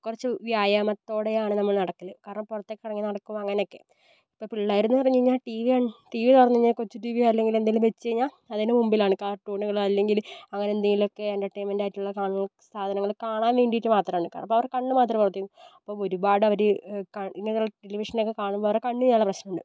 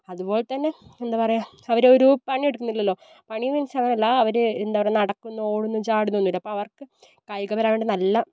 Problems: none marked